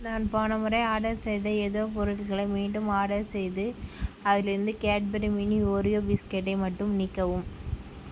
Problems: none marked